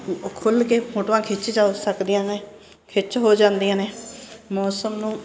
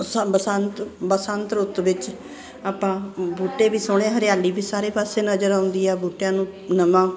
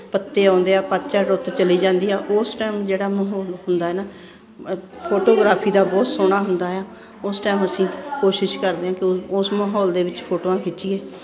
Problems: constant background noise